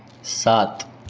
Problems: constant background noise